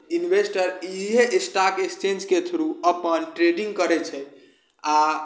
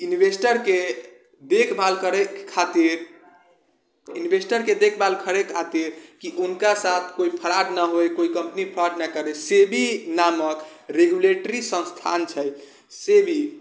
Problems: none marked